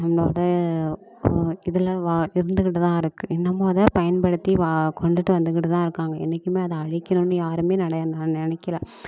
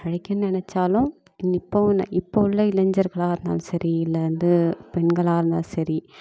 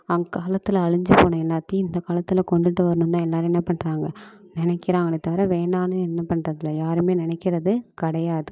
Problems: constant background noise